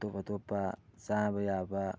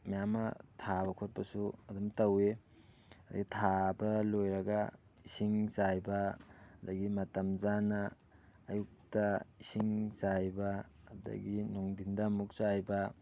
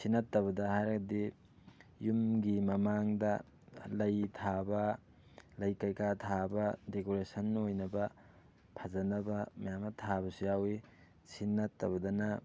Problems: none marked